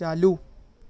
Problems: none marked